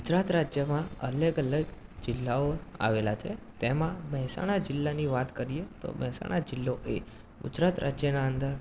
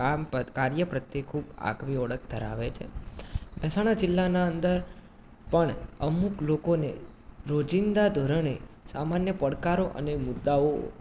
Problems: constant background noise